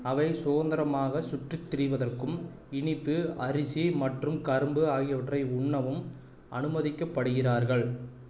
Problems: none marked